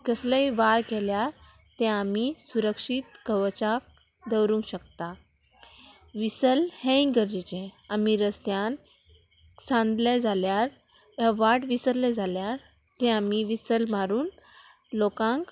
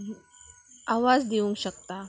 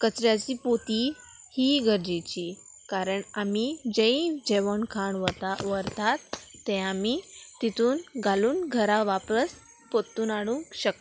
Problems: constant background noise